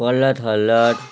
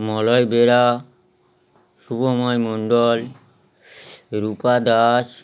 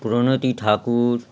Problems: none marked